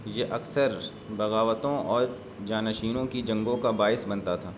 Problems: constant background noise, low volume